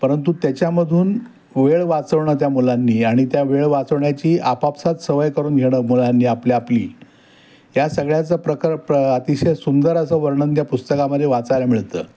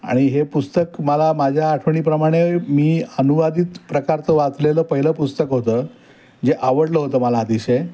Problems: none marked